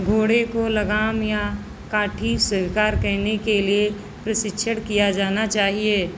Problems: constant background noise